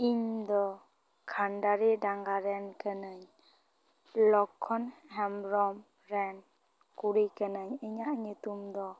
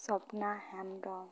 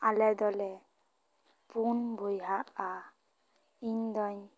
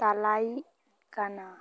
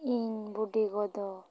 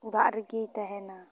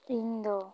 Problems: background conversations at intervals